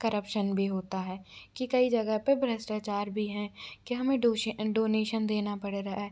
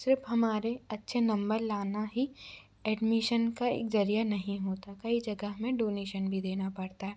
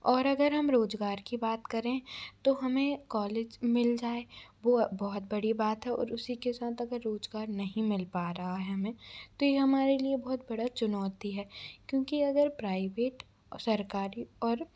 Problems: background sounds at intervals